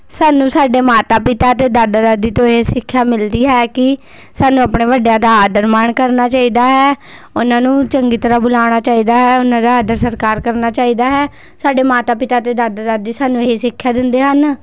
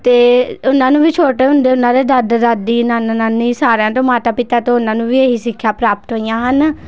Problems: background sounds at intervals